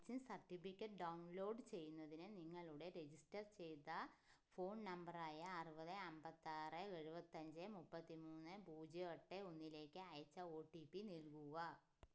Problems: low volume